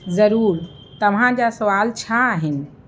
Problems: constant background noise